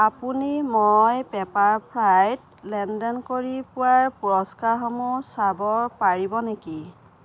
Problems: none marked